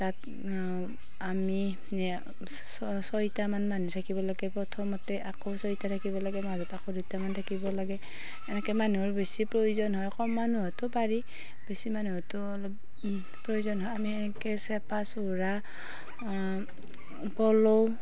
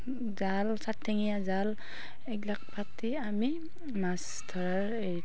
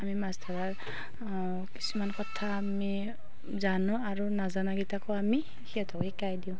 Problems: constant background noise, background conversations at intervals